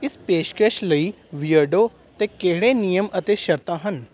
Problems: background sounds at intervals